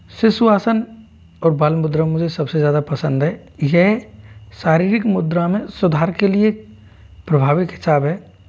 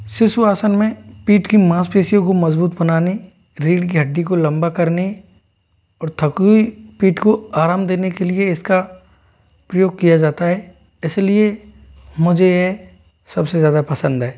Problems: constant background noise